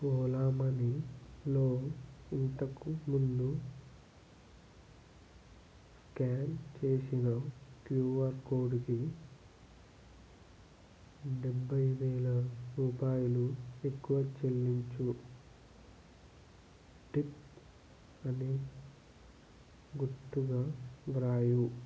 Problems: low volume